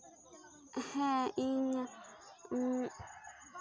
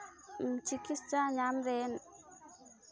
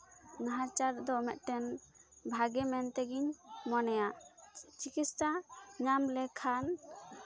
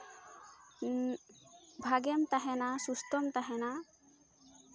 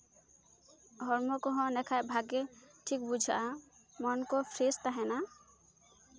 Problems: constant background noise, continuous background conversations